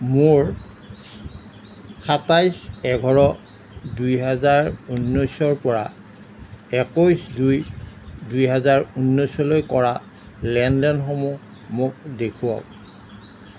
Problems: none marked